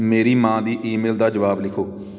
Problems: background sounds at intervals